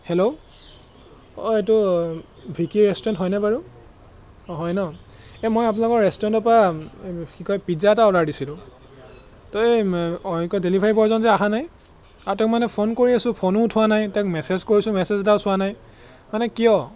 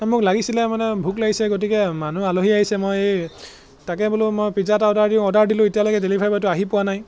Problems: none marked